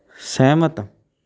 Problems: background conversations at intervals